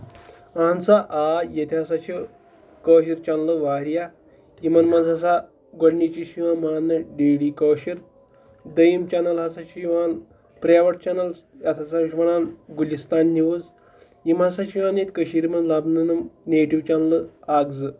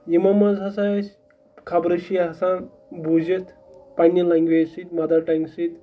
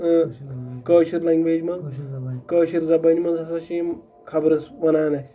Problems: background sounds at intervals